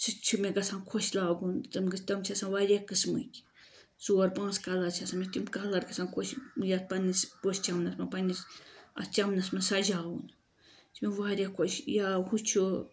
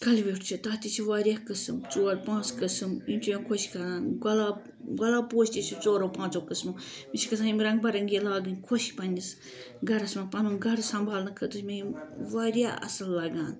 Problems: background sounds at intervals